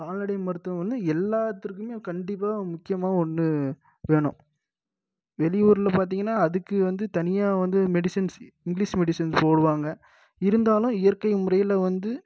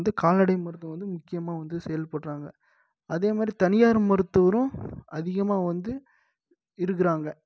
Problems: none marked